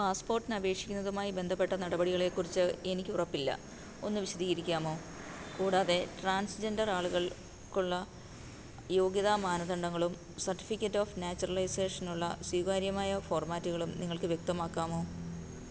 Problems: constant background noise, low volume